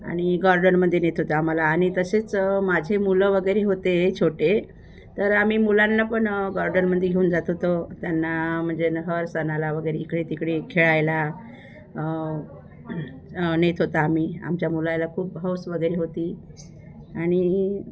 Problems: background sounds at intervals